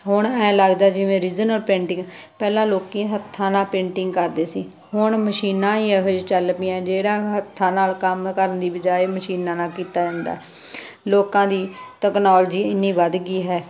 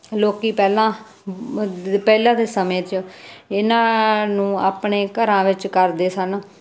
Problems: constant background noise